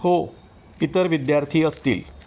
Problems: constant background noise